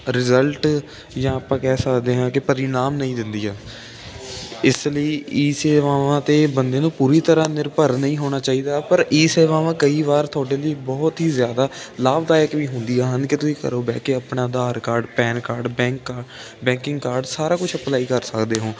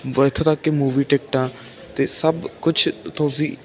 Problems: none marked